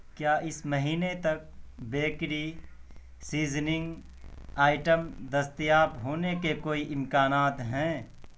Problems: background sounds at intervals, low volume